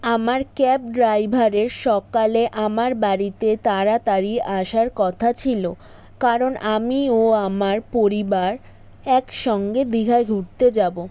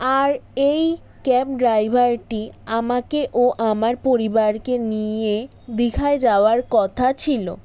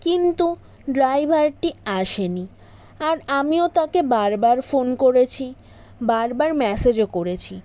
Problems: background sounds at intervals